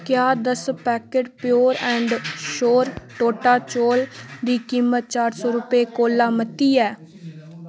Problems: constant background noise